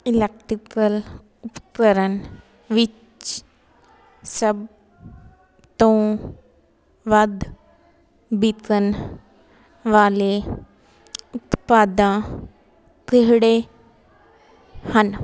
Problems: constant background noise